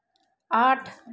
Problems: low volume